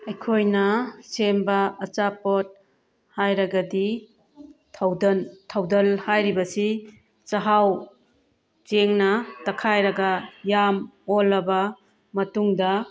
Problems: background sounds at intervals